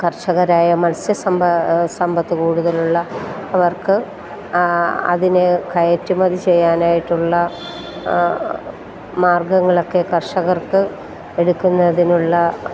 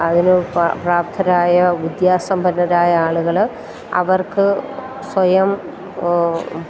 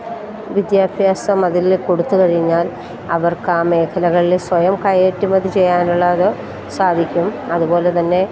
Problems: constant background noise